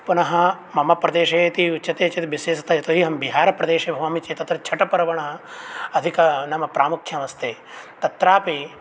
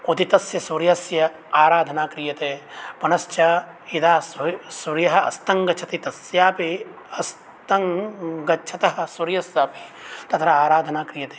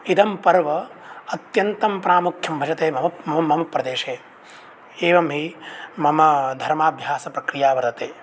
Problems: constant background noise